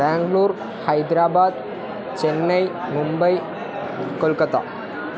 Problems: continuous background conversations